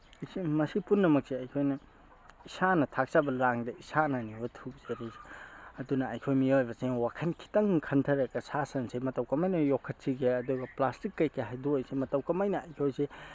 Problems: none marked